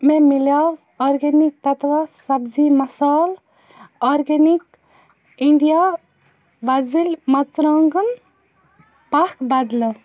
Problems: constant background noise